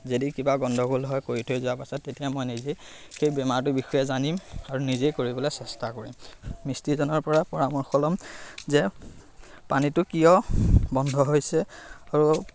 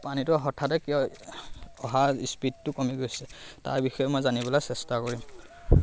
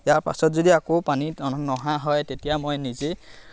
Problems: constant background noise